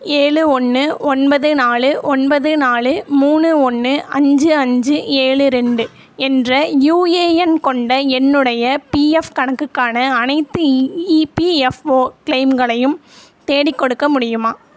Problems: none marked